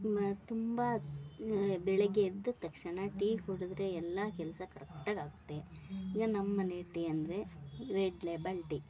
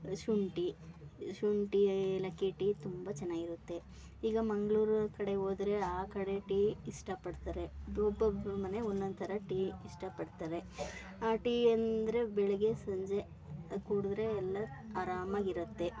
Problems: background sounds at intervals